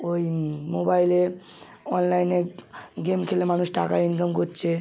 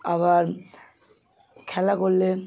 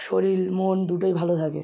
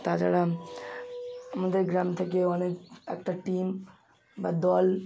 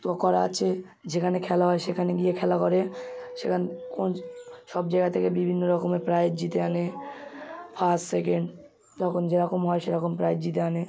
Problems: none marked